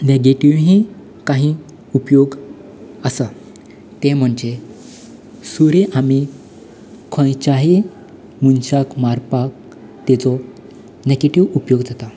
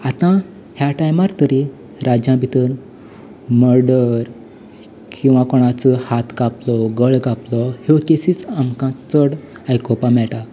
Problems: none marked